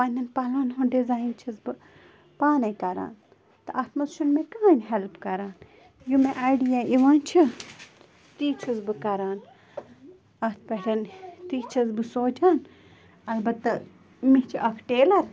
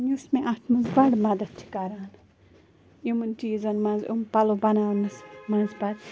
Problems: constant background noise